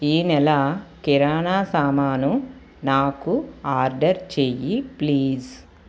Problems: none marked